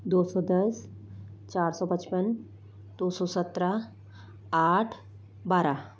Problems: constant background noise